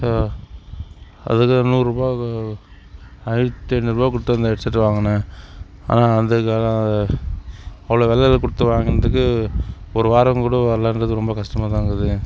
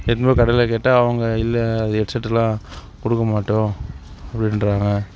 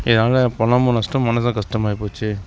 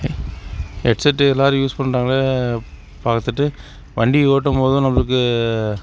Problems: constant background noise